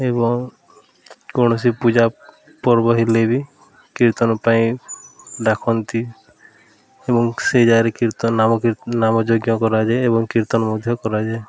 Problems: constant background noise